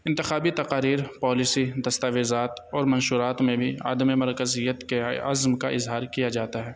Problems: constant background noise